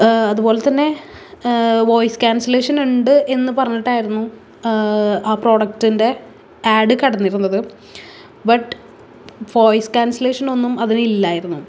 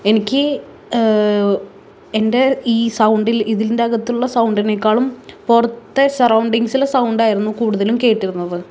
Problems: none marked